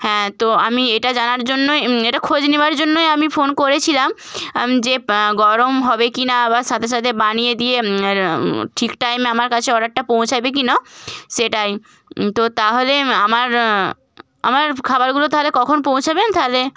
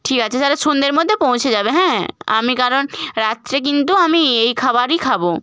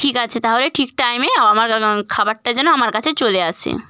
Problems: none marked